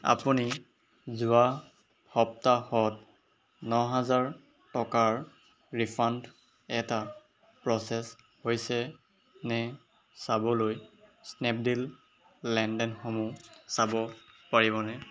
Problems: background sounds at intervals